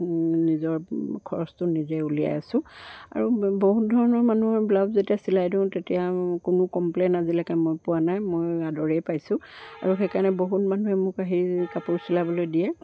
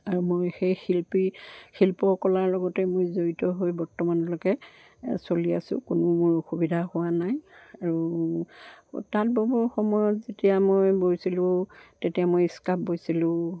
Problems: background sounds at intervals